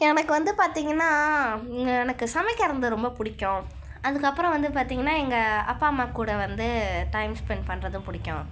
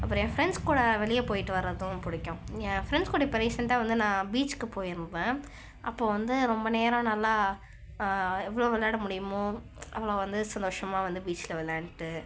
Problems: background sounds at intervals